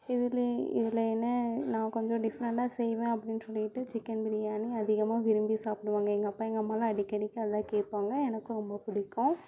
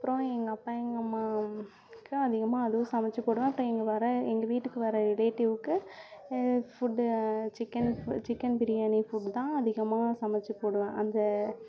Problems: continuous background conversations